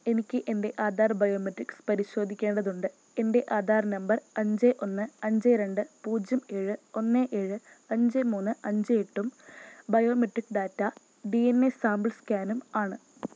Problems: none marked